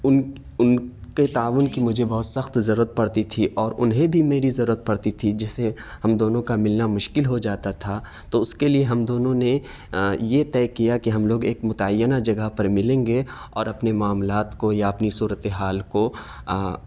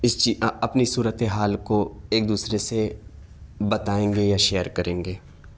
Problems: none marked